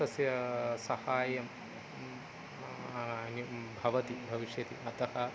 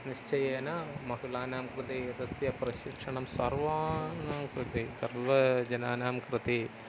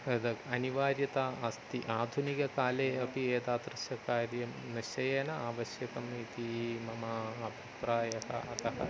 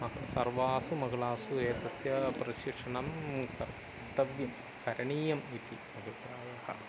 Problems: constant background noise, continuous background conversations